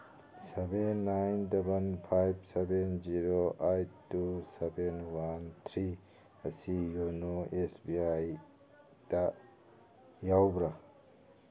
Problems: background sounds at intervals, background conversations at intervals